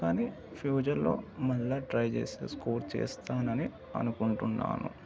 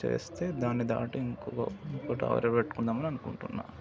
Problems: background sounds at intervals, continuous background conversations